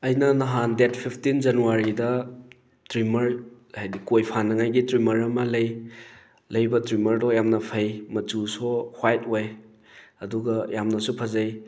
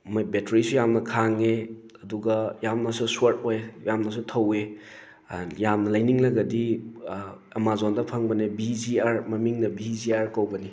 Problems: none marked